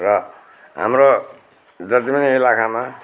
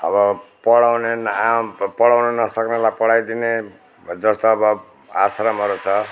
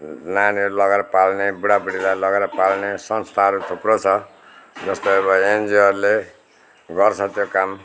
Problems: none marked